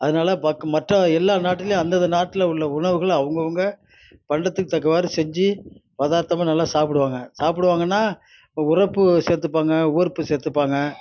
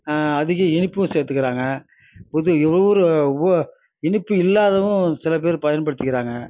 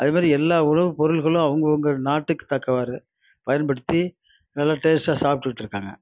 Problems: none marked